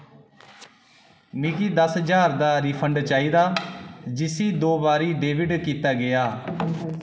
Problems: echo